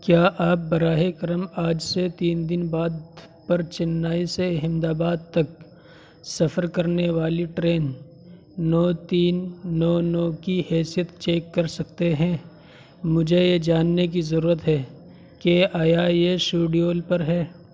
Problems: constant background noise